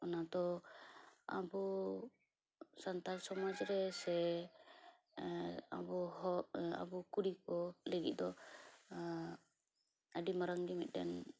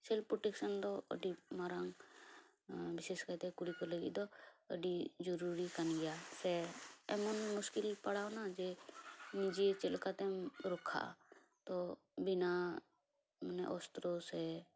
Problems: background sounds at intervals, low volume